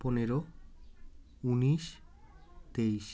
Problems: continuous background conversations